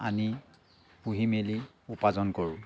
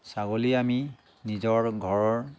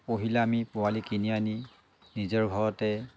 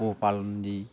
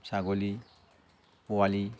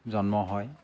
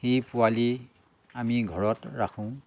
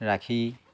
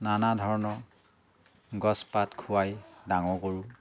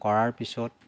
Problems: constant background noise, background conversations at intervals